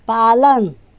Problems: none marked